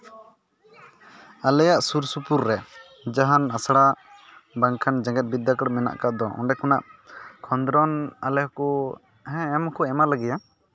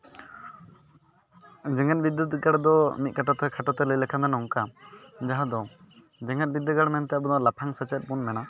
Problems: background sounds at intervals, continuous background conversations